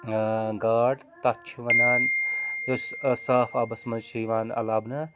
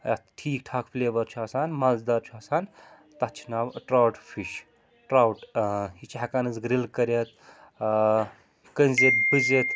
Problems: constant background noise